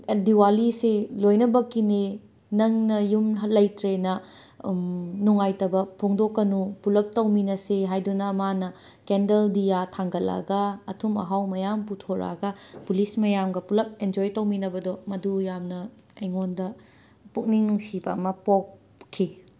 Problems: background sounds at intervals